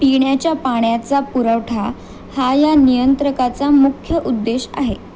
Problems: constant background noise